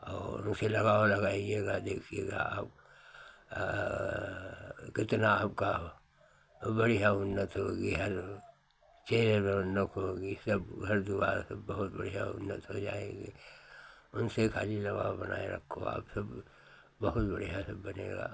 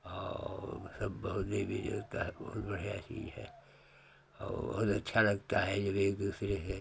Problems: none marked